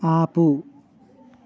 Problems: constant background noise